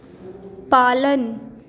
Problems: constant background noise, echo